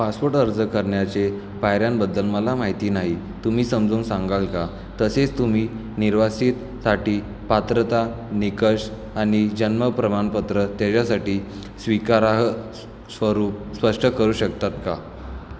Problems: background sounds at intervals, echo